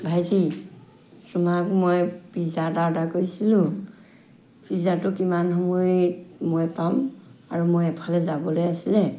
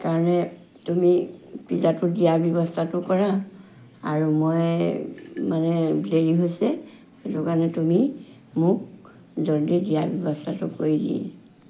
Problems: background sounds at intervals